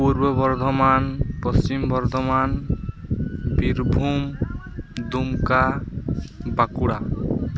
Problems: constant background noise, background conversations at intervals